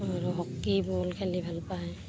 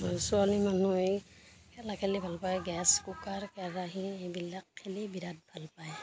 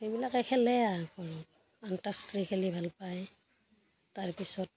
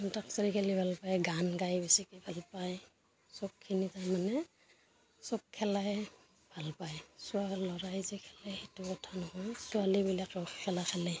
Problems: constant background noise, background conversations at intervals